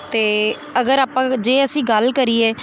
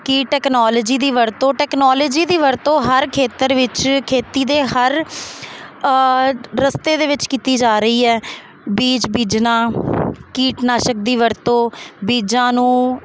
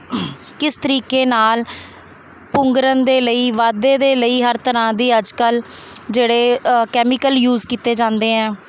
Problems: constant background noise